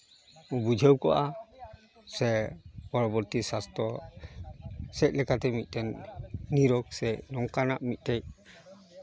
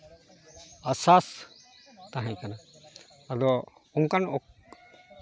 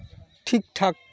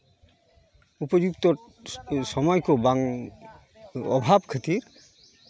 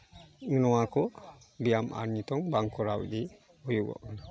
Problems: background conversations at intervals